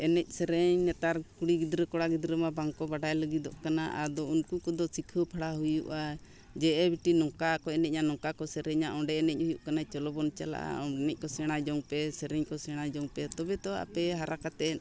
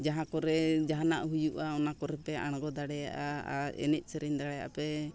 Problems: background conversations at intervals